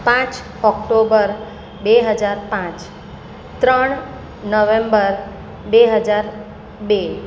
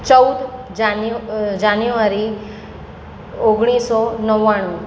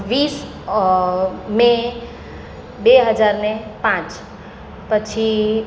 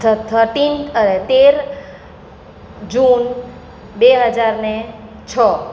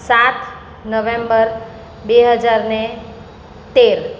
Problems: none marked